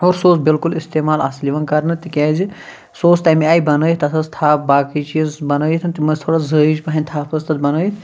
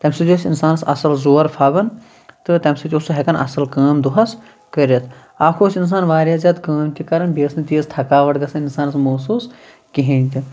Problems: background sounds at intervals